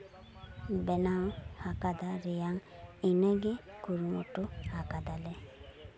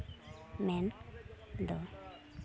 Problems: constant background noise, background conversations at intervals